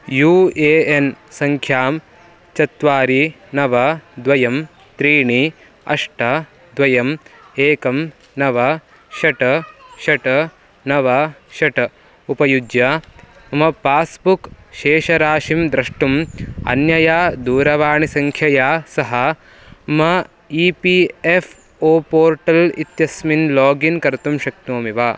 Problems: none marked